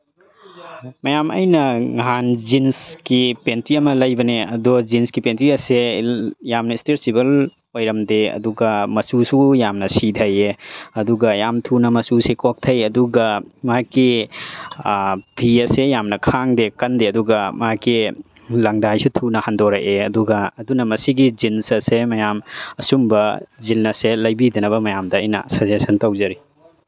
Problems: background conversations at intervals